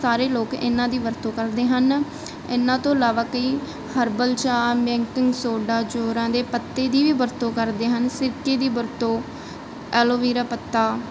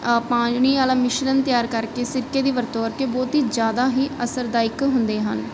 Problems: none marked